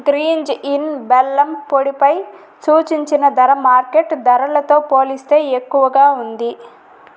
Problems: constant background noise